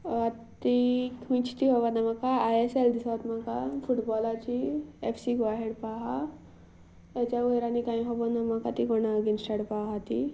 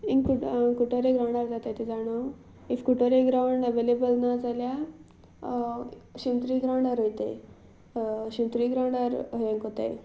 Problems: background sounds at intervals